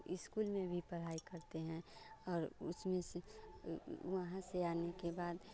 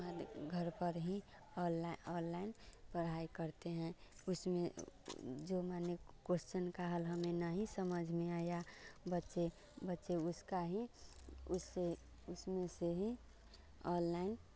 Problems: none marked